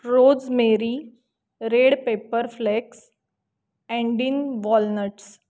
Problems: none marked